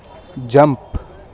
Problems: background sounds at intervals